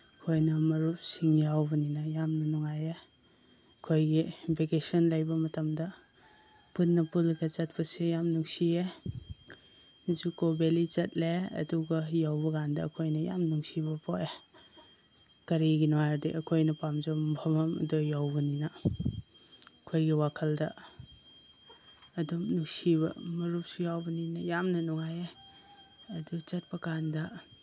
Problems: constant background noise